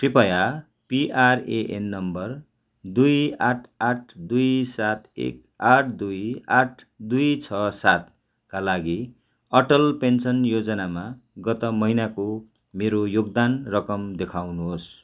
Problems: none marked